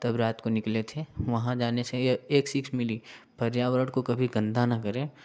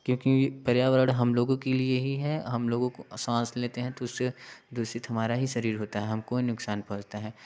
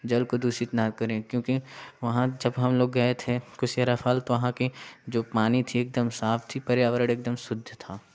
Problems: background sounds at intervals, background conversations at intervals